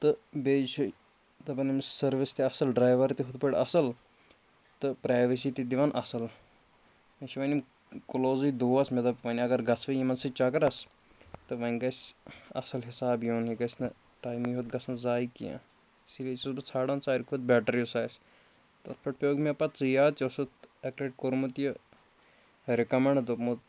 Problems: none marked